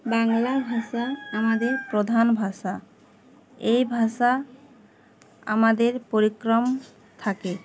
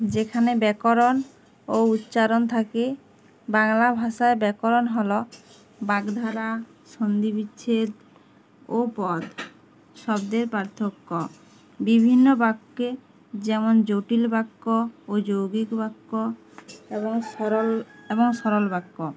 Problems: constant background noise